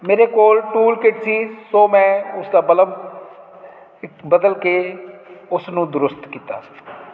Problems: none marked